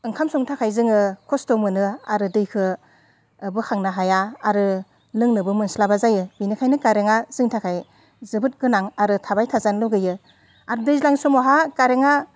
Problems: none marked